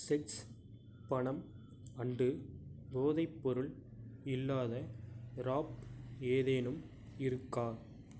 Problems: none marked